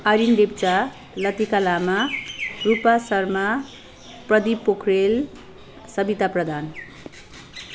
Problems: none marked